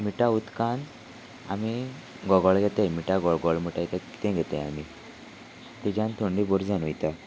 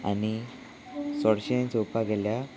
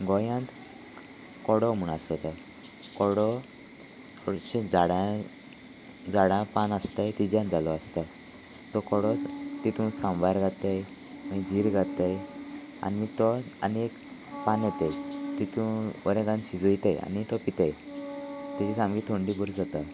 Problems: none marked